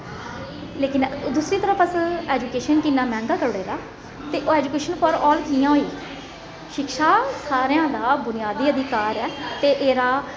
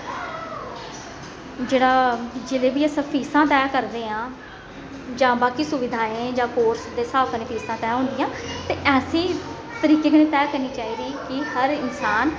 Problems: echo